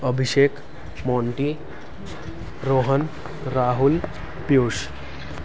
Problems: background sounds at intervals